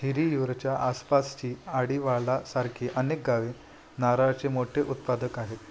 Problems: none marked